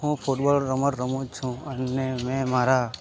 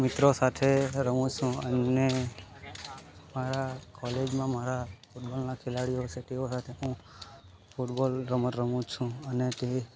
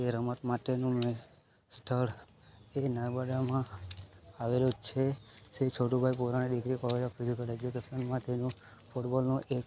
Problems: none marked